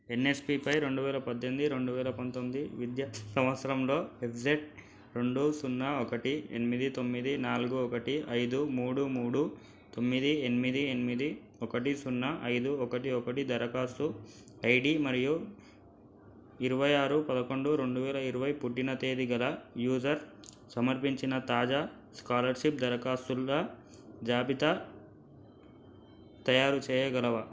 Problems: none marked